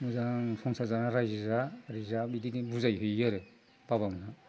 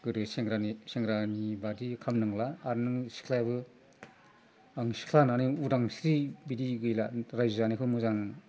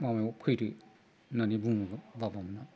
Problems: low volume